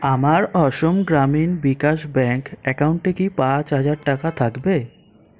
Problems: constant background noise